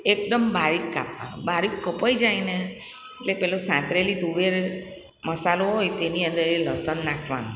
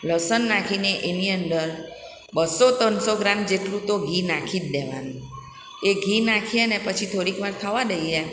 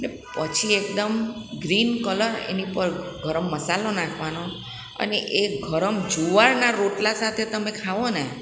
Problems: none marked